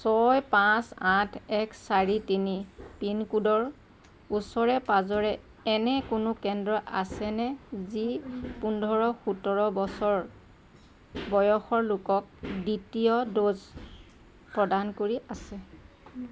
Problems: constant background noise